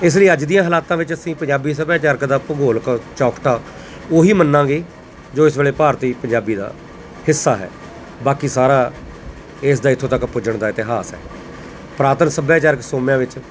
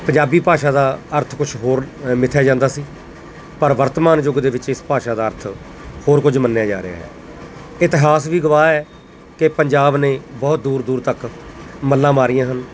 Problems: none marked